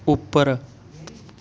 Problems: background conversations at intervals